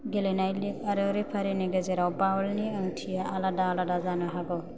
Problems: none marked